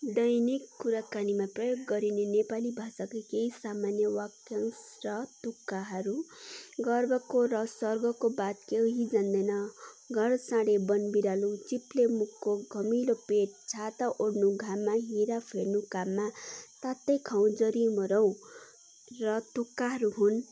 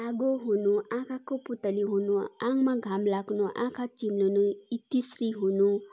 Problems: none marked